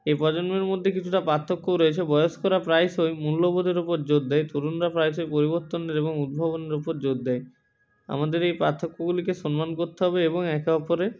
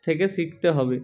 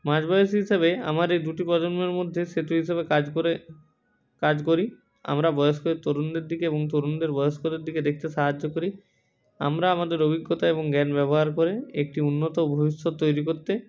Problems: background sounds at intervals, background conversations at intervals